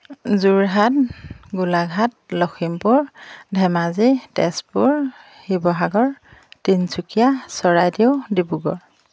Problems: background sounds at intervals